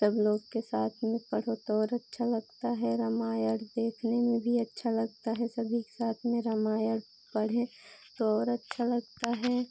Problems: constant background noise